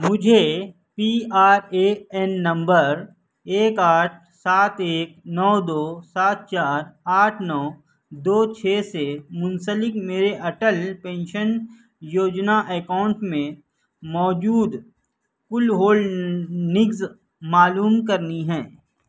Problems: none marked